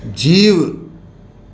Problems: constant background noise